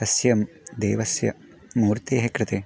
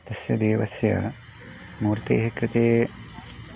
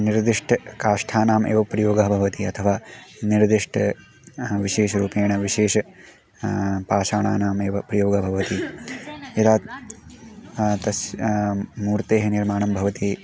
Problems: background sounds at intervals